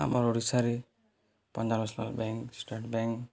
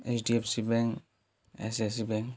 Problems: none marked